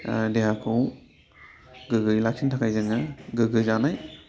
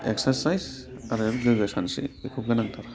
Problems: constant background noise